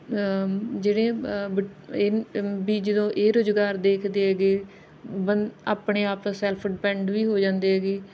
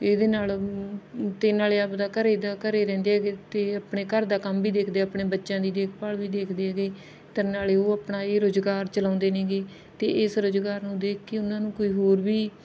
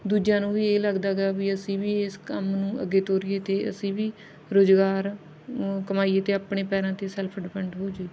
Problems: none marked